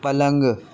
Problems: constant background noise